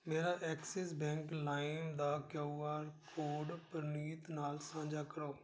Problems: background sounds at intervals